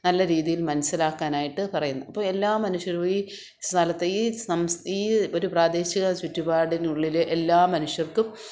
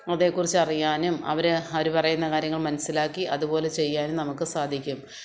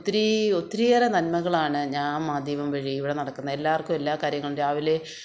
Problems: background sounds at intervals